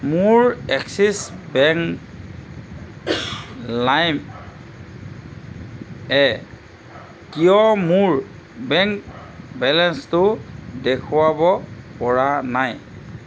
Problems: constant background noise